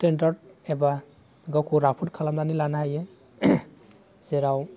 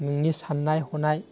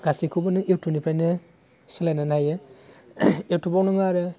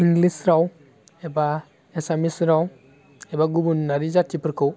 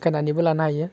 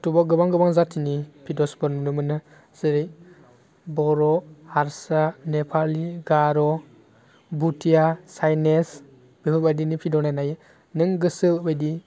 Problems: constant background noise